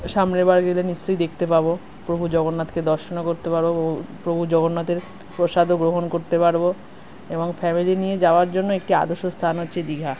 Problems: none marked